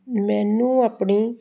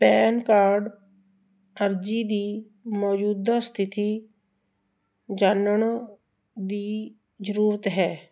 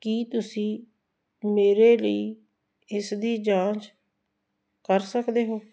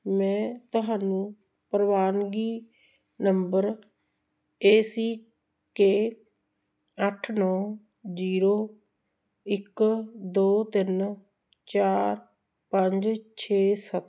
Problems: background sounds at intervals